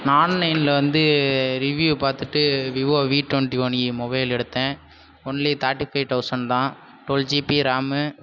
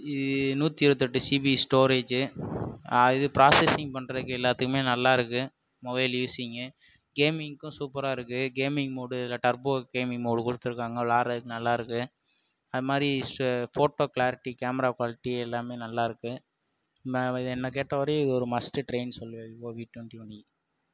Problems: background sounds at intervals